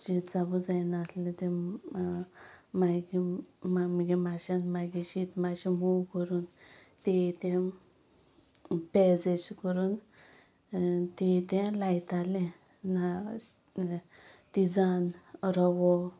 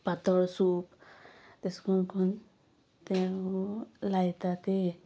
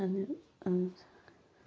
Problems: none marked